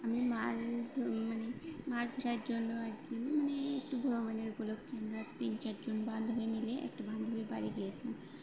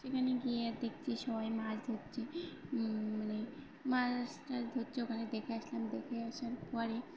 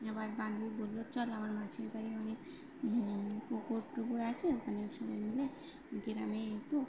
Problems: constant background noise, background conversations at intervals